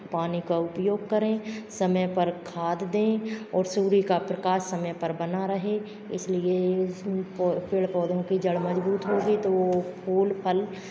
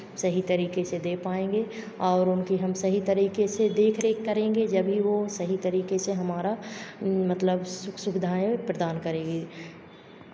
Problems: constant background noise